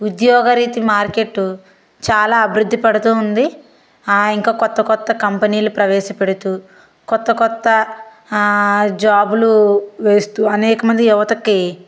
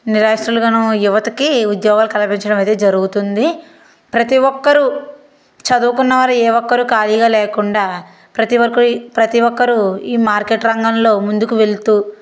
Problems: constant background noise